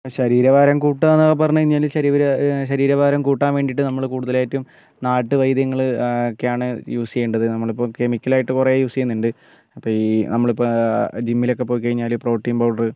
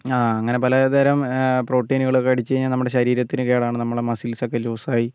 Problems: none marked